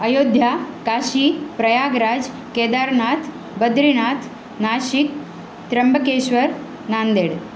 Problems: constant background noise